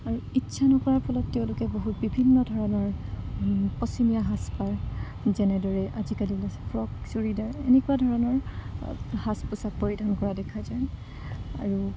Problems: constant background noise, low volume